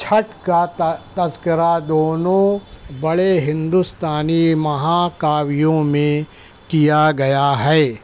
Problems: none marked